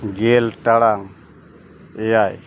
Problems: background sounds at intervals